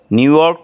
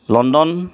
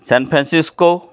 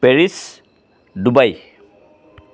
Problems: constant background noise